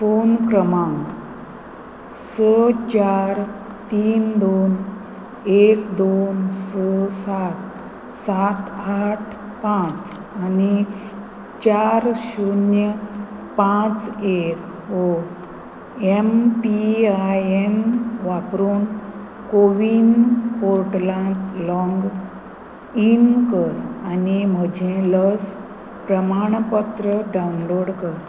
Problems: none marked